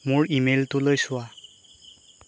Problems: constant background noise